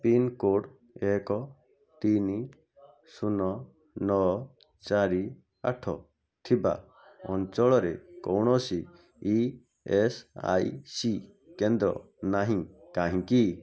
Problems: background sounds at intervals, background conversations at intervals